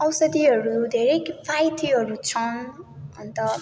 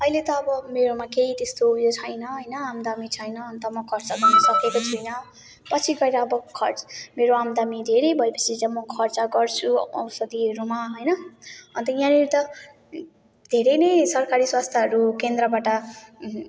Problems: none marked